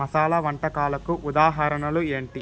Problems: constant background noise